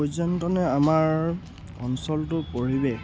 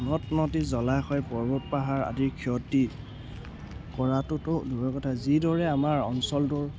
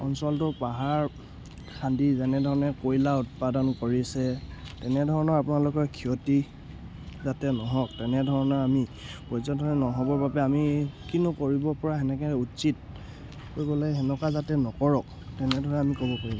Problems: background sounds at intervals